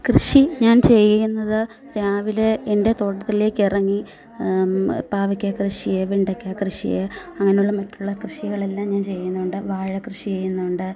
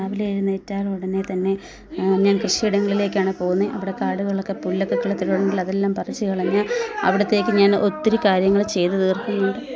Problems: background conversations at intervals